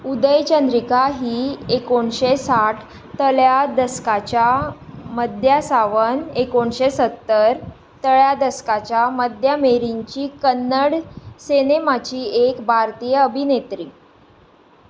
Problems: background sounds at intervals